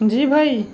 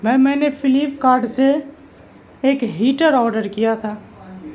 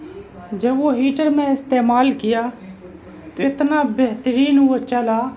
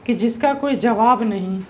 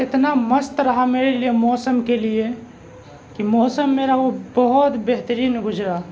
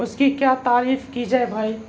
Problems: constant background noise, background conversations at intervals